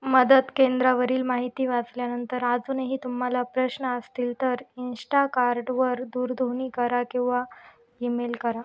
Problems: none marked